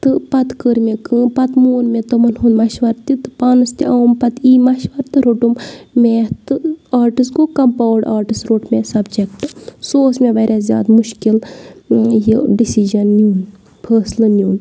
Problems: background sounds at intervals